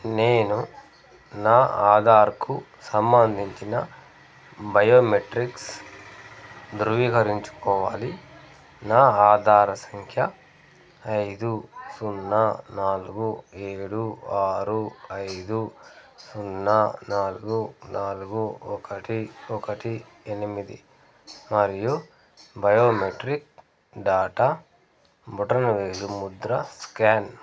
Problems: background conversations at intervals